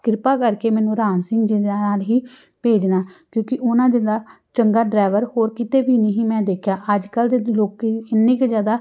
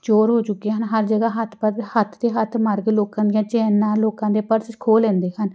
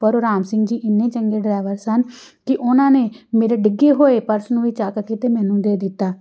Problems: background sounds at intervals